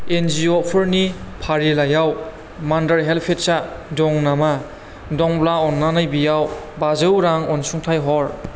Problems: constant background noise